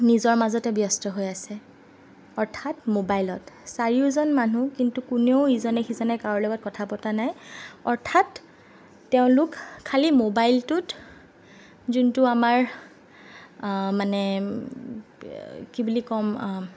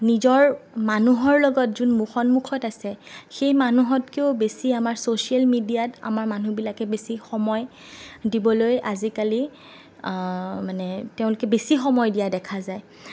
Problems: none marked